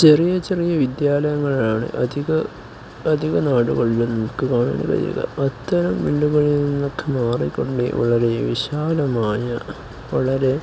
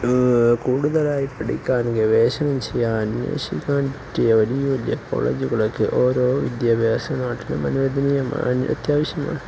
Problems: none marked